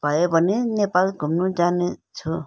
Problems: none marked